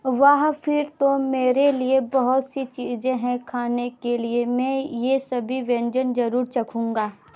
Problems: none marked